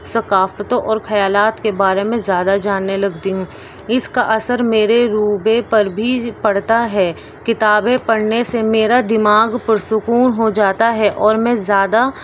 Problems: constant background noise